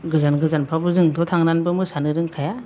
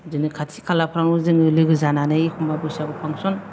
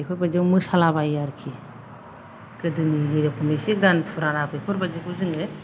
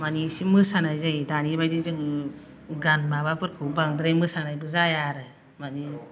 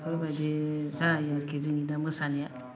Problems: none marked